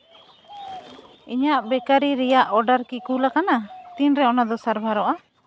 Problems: constant background noise